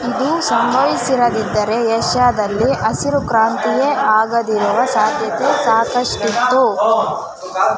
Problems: continuous background conversations